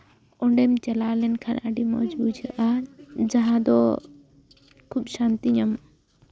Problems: background conversations at intervals